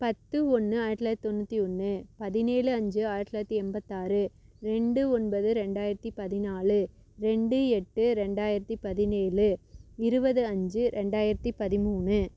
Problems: none marked